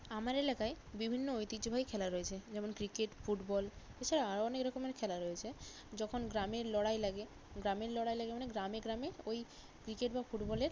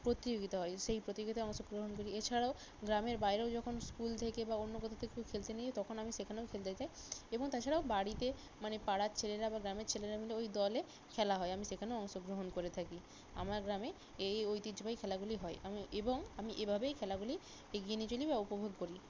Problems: none marked